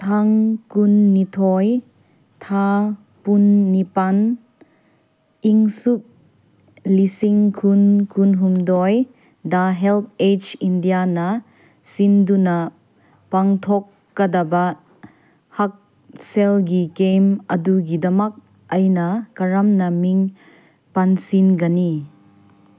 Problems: none marked